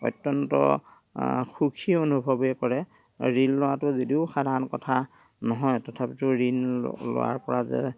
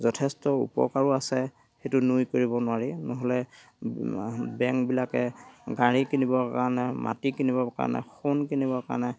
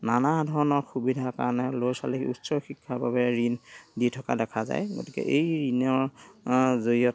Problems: background sounds at intervals, background conversations at intervals